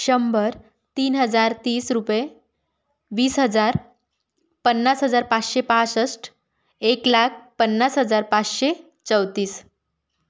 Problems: none marked